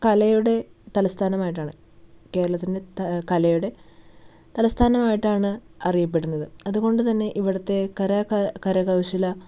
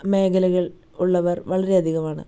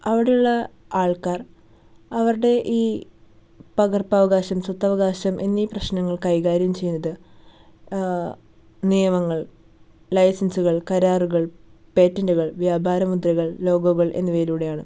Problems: none marked